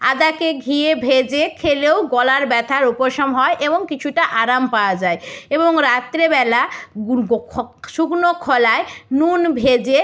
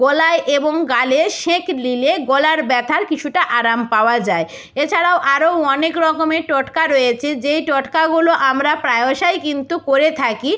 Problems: none marked